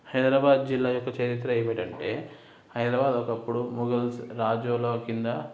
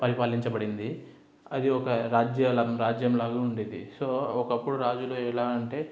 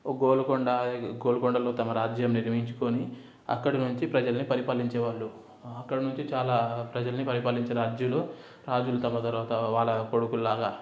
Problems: background sounds at intervals